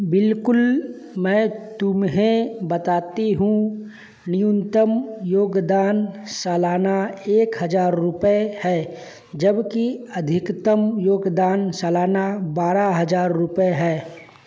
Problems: none marked